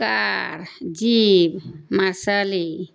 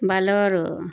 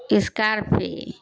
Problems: constant background noise